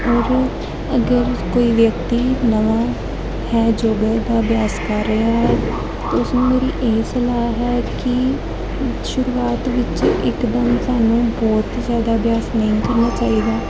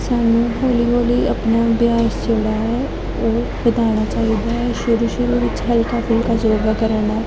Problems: constant background noise, continuous background conversations